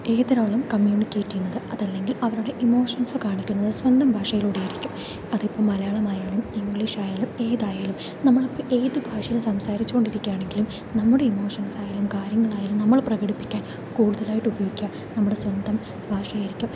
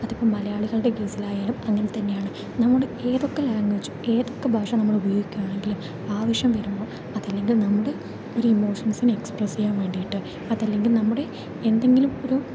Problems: none marked